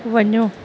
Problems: none marked